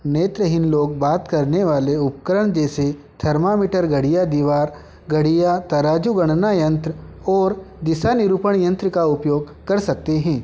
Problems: constant background noise